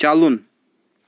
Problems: constant background noise